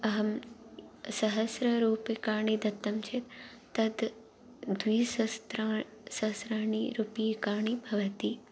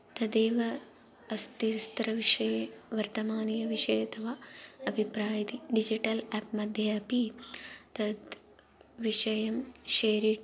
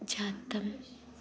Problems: none marked